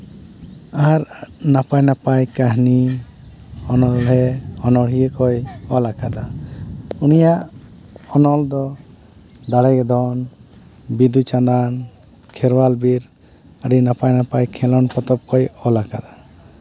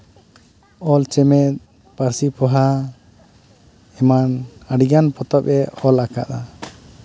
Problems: constant background noise, background conversations at intervals